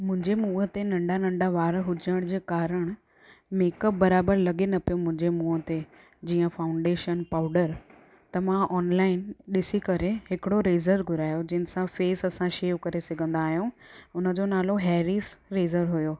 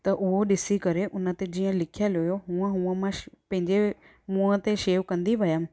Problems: constant background noise